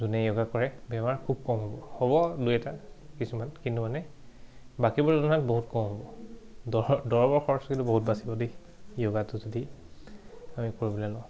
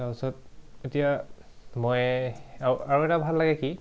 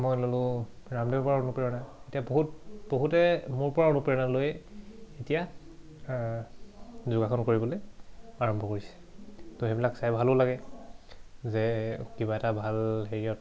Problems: background sounds at intervals